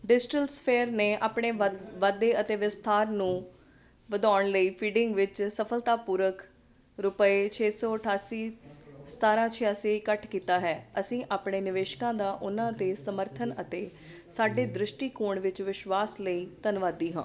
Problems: background sounds at intervals